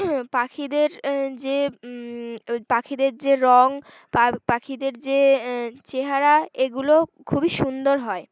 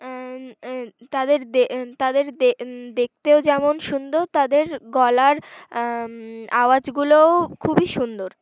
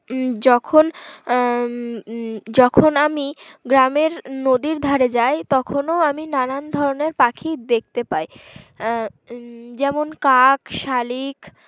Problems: background sounds at intervals, background conversations at intervals